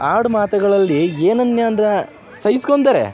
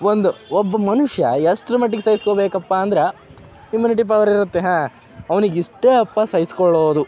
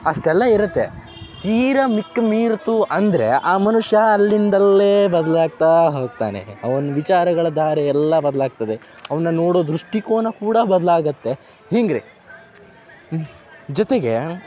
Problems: none marked